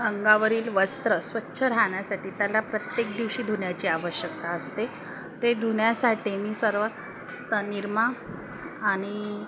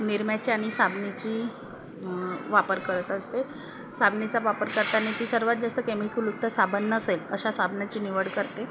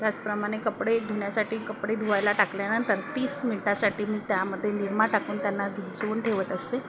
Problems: none marked